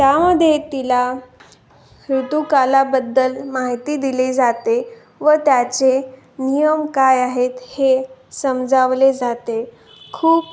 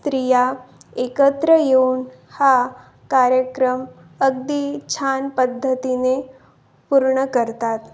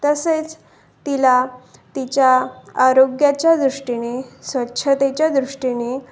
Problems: constant background noise, continuous background conversations